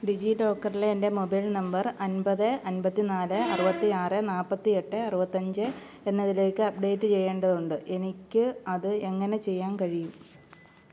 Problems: low volume